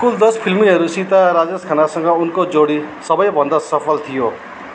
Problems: background sounds at intervals